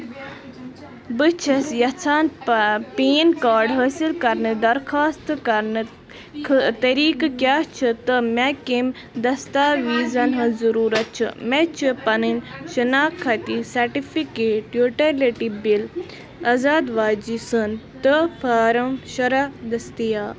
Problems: constant background noise, continuous background conversations